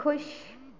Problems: none marked